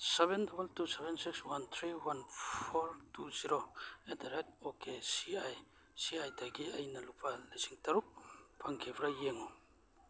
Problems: background sounds at intervals